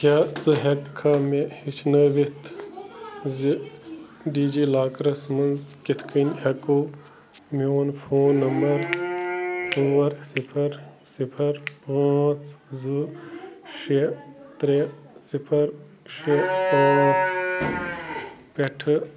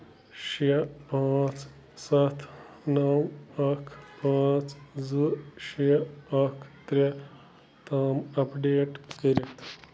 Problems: constant background noise